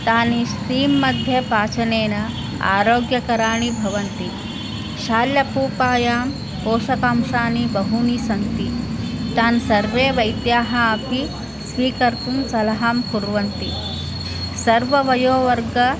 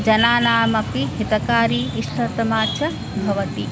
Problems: none marked